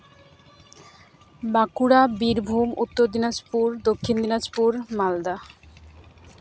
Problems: constant background noise